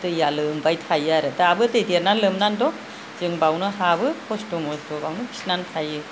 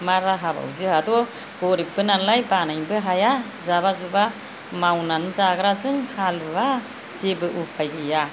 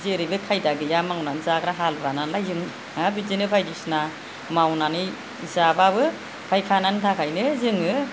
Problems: low volume